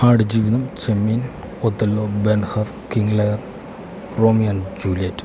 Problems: constant background noise